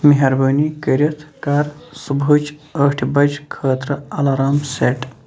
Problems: none marked